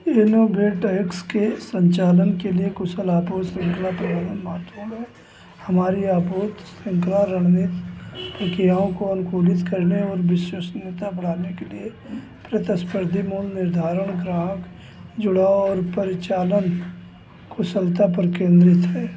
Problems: constant background noise